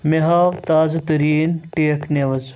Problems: none marked